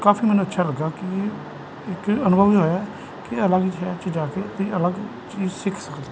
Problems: constant background noise